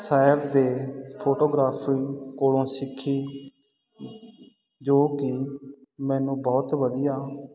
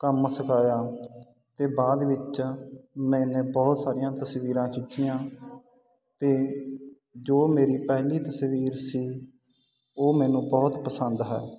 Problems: constant background noise